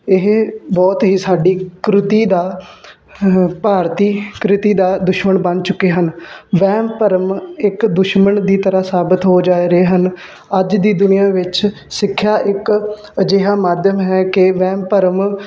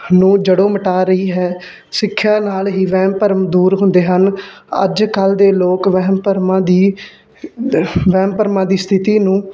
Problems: background sounds at intervals